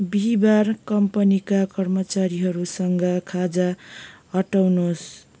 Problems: none marked